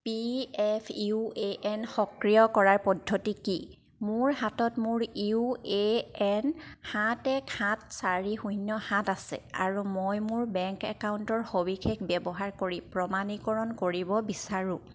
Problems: none marked